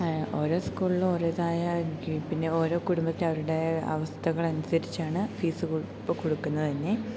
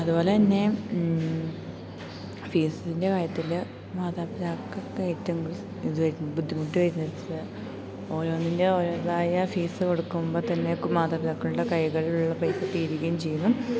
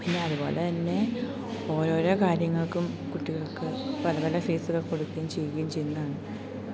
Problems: constant background noise, low volume